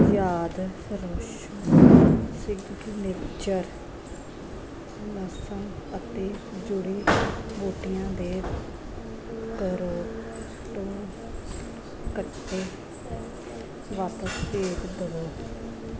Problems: constant background noise, background conversations at intervals